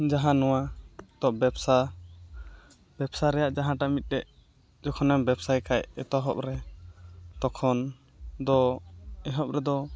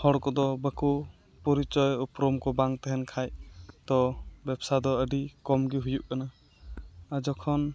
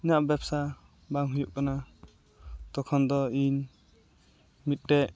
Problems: constant background noise